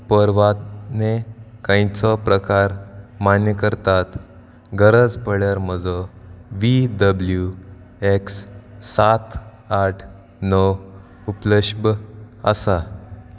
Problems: background sounds at intervals